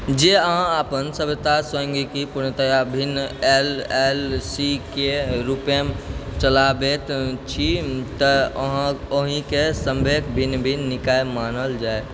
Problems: constant background noise